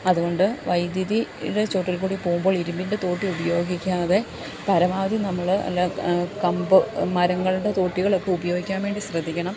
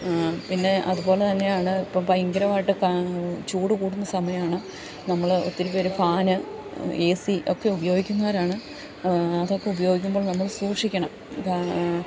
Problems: constant background noise, low volume